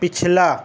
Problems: constant background noise